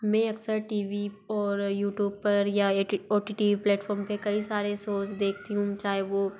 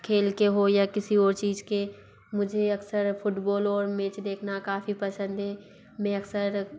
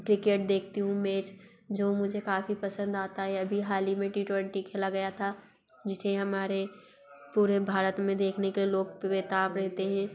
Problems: background sounds at intervals, background conversations at intervals